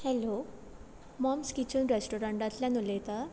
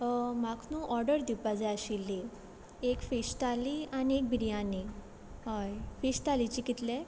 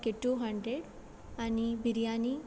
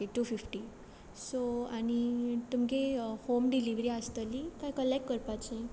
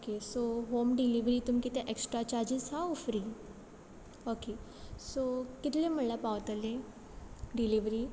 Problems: background sounds at intervals